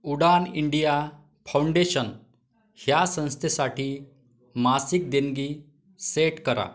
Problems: background conversations at intervals